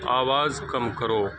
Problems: constant background noise